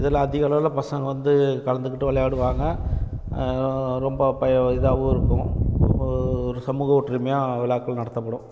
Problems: constant background noise